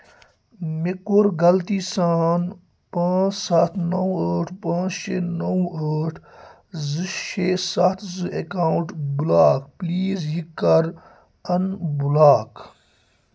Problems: constant background noise